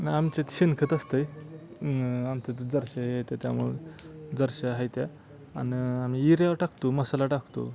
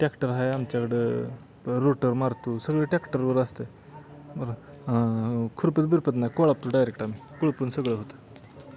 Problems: constant background noise, background conversations at intervals